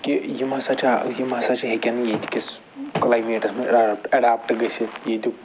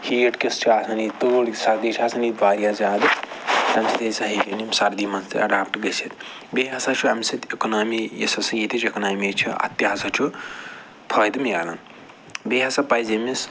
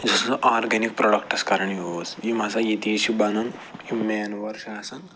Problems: background sounds at intervals